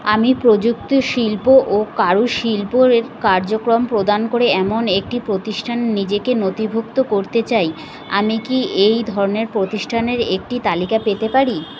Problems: constant background noise